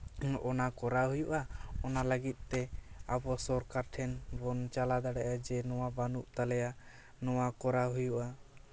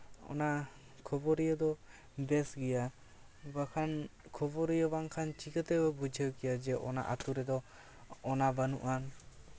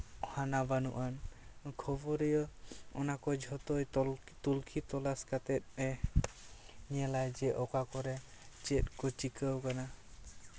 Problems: none marked